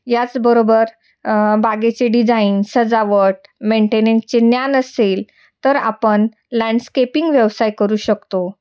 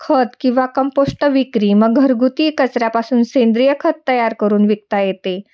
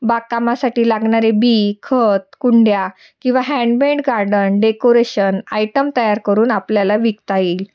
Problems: none marked